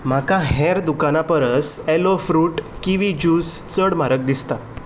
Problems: background sounds at intervals